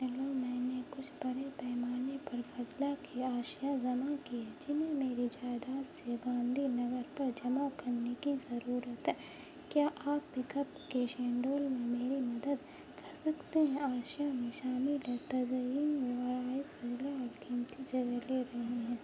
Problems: constant background noise, low volume